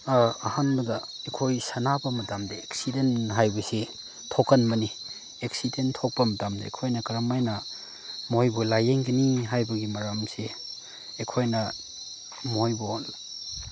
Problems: background sounds at intervals, background conversations at intervals